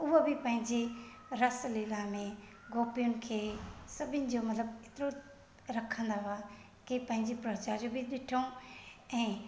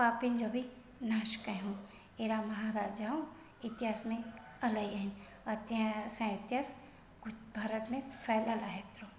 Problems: echo